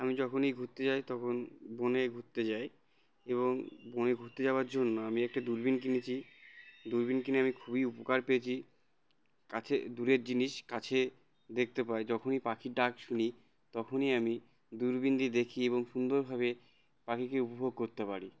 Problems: constant background noise